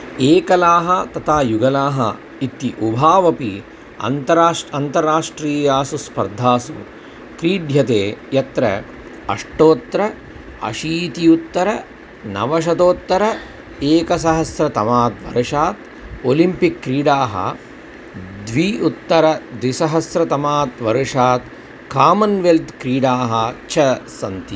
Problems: constant background noise